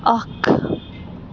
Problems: constant background noise